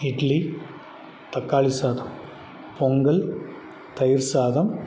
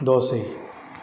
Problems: constant background noise